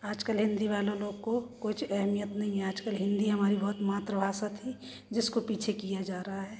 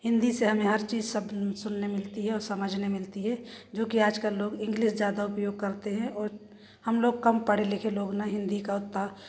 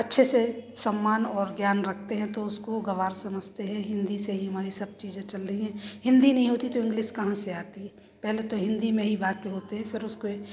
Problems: constant background noise, background conversations at intervals